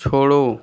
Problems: constant background noise